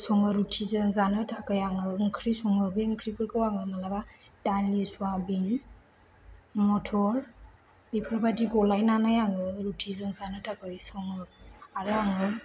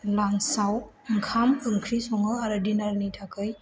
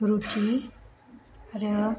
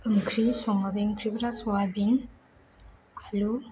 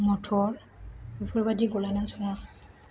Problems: low volume